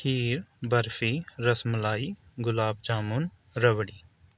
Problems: background sounds at intervals